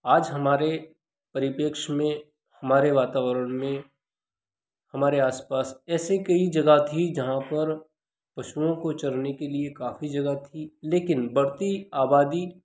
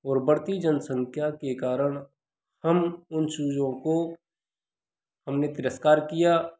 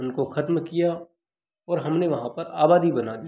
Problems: none marked